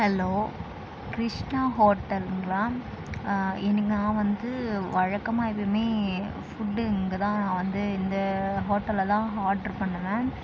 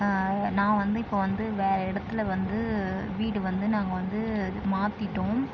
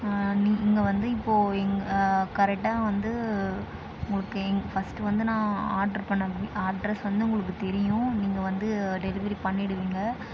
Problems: constant background noise